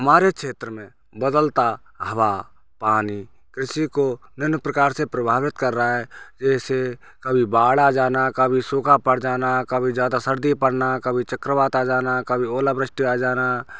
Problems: background sounds at intervals